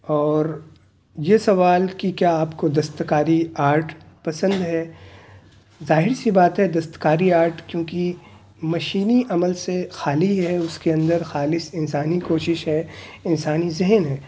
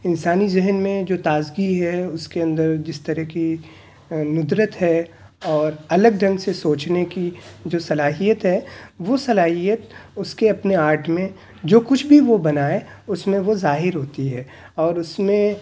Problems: none marked